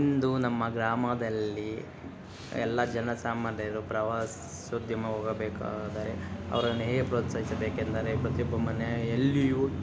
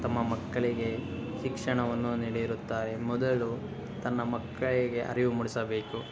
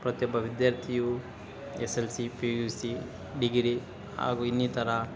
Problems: background sounds at intervals